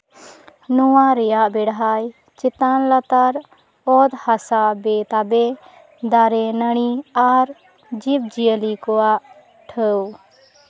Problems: background sounds at intervals, continuous background conversations